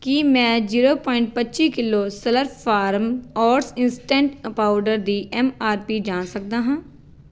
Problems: background sounds at intervals